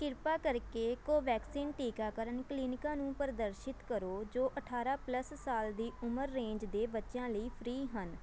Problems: background sounds at intervals